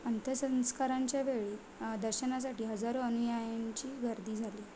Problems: constant background noise